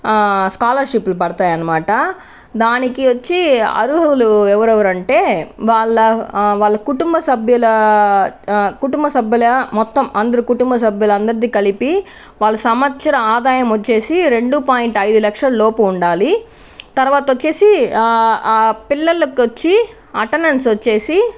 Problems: none marked